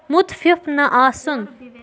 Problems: none marked